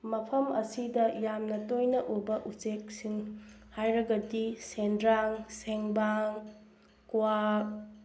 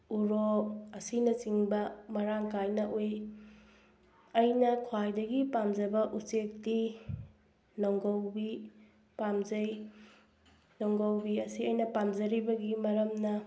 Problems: background sounds at intervals